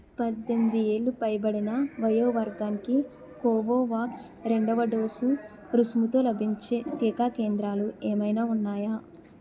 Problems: continuous background conversations